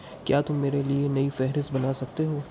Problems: constant background noise, low volume